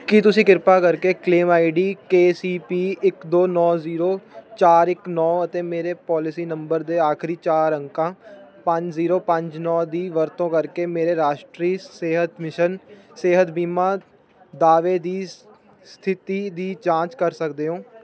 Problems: none marked